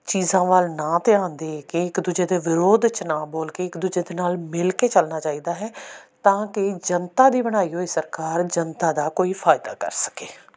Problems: background sounds at intervals